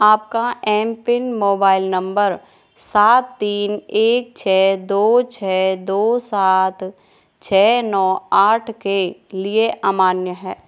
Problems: none marked